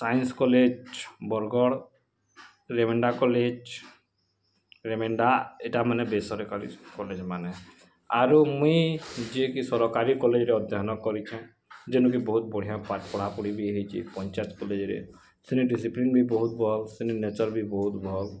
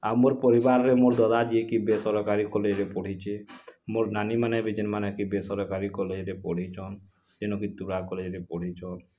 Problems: constant background noise